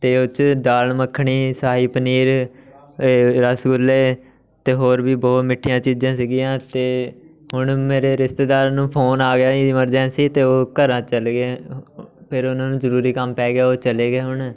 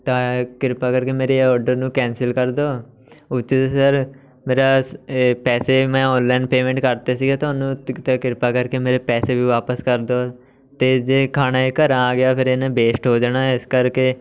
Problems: background sounds at intervals, continuous background conversations